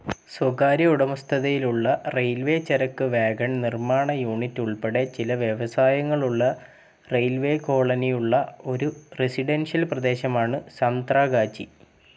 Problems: constant background noise